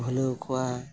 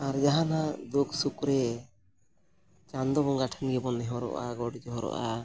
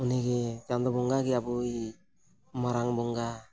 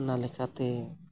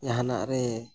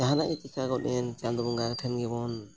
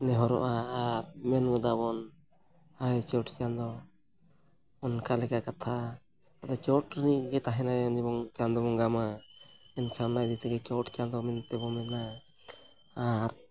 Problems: none marked